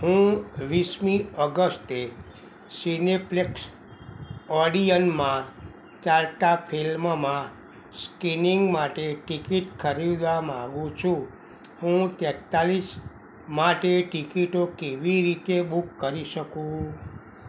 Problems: none marked